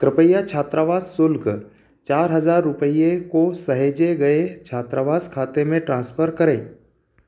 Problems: constant background noise